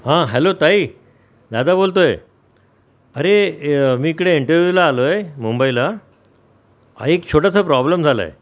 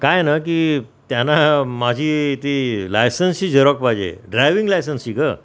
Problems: none marked